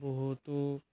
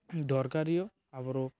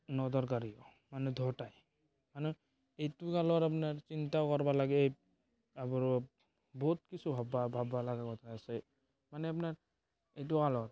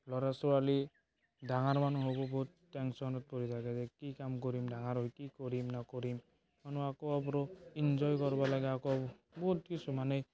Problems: background sounds at intervals, continuous background conversations